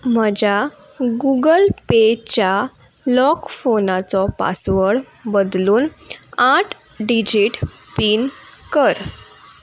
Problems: none marked